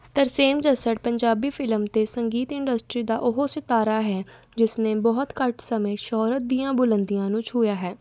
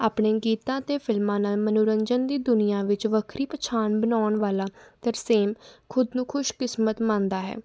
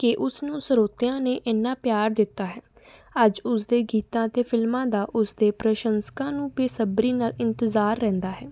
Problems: none marked